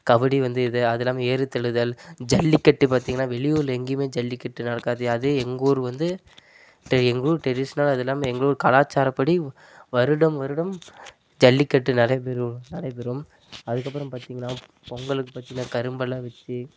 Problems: none marked